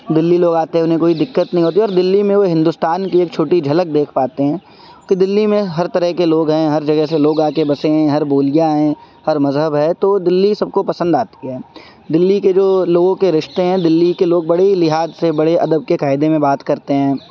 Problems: constant background noise